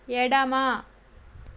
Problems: constant background noise